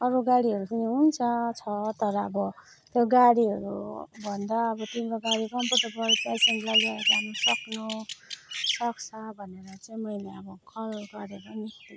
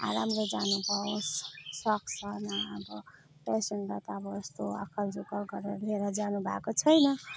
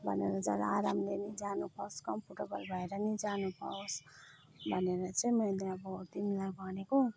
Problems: none marked